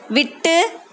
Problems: constant background noise